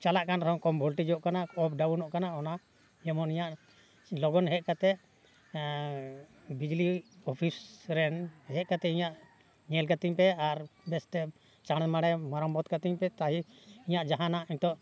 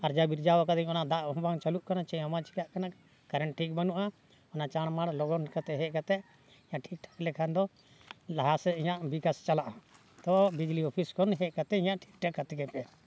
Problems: background sounds at intervals